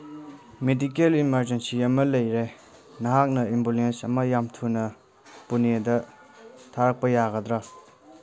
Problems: background sounds at intervals